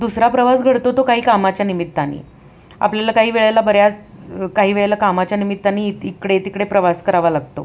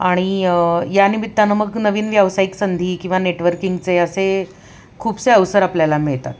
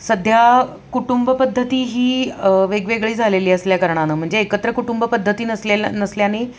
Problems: constant background noise, background conversations at intervals